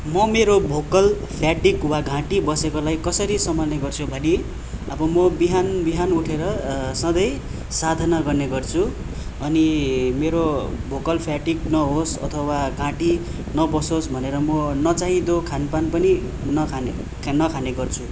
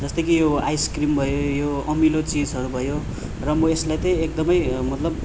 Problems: constant background noise